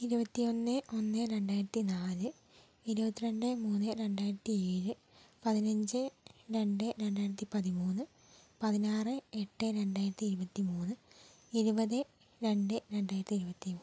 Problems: low volume